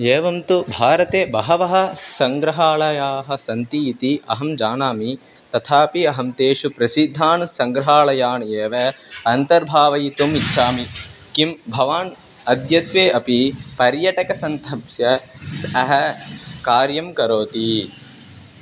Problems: constant background noise